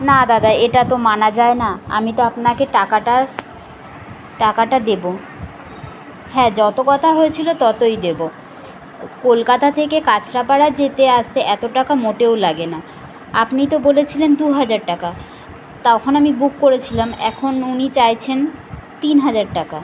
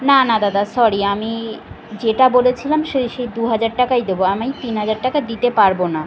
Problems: constant background noise